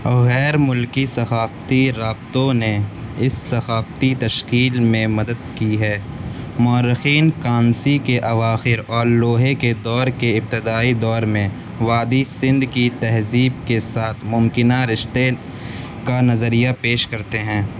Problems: constant background noise